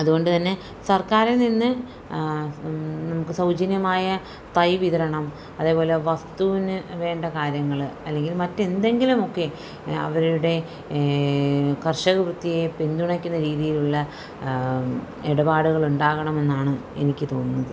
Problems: none marked